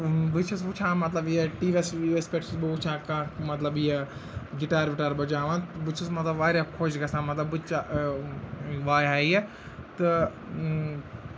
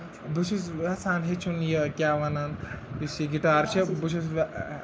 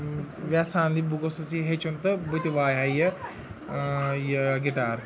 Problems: constant background noise, continuous background conversations